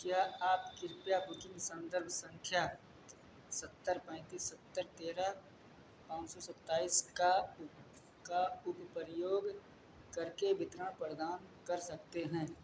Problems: none marked